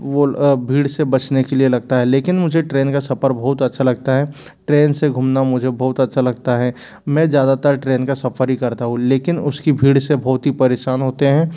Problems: background sounds at intervals